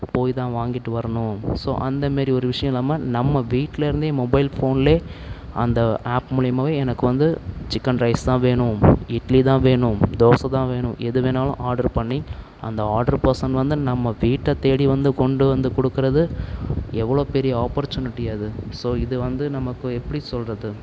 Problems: none marked